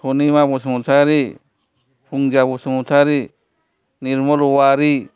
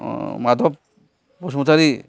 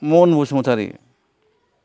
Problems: none marked